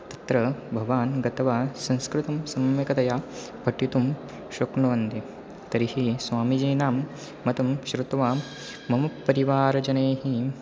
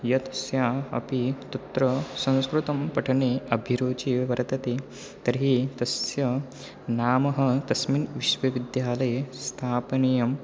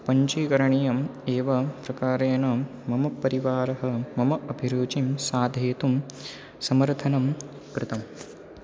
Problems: none marked